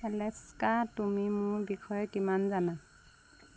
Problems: none marked